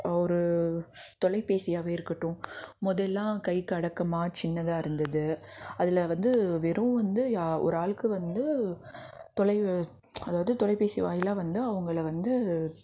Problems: background sounds at intervals, background conversations at intervals